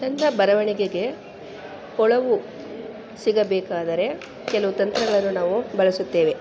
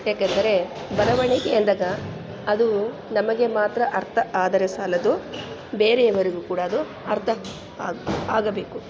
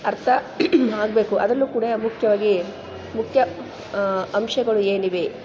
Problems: background sounds at intervals